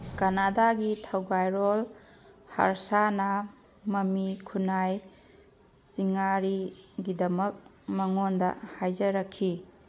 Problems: background sounds at intervals